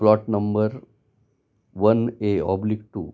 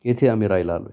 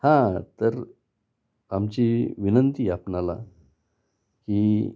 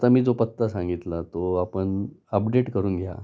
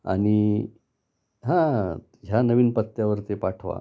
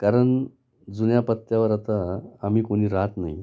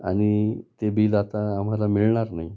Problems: constant background noise